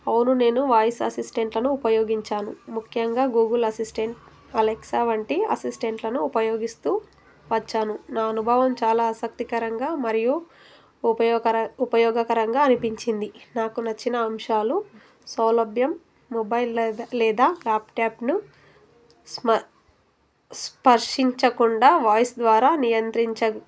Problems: constant background noise